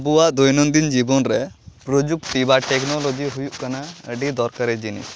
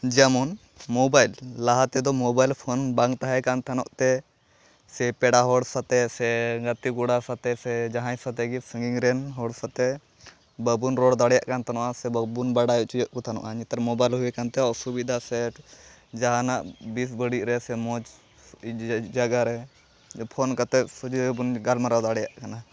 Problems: constant background noise, continuous background conversations